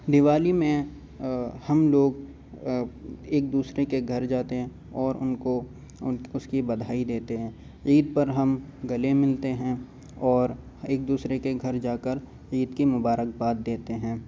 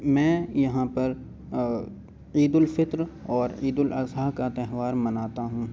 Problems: constant background noise